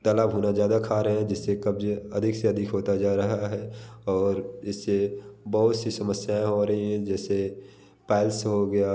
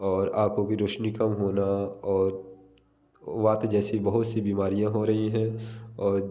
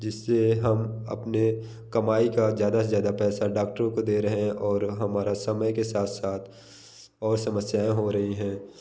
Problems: constant background noise